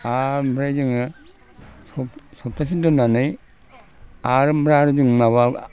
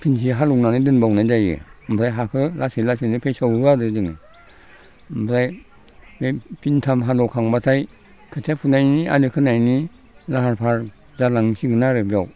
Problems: low volume